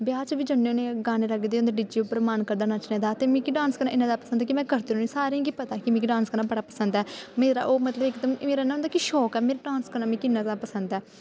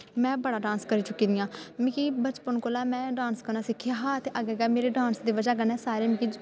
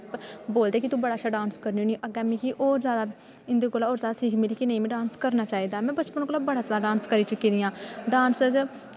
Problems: background sounds at intervals, echo